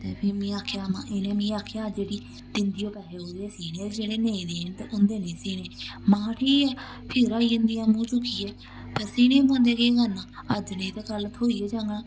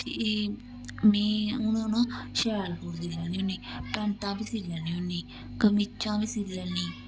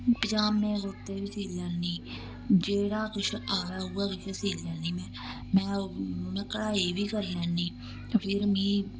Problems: background sounds at intervals